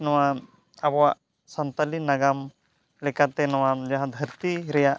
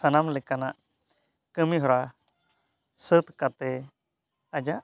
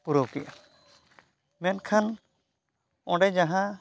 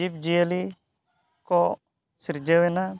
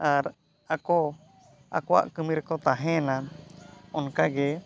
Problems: background sounds at intervals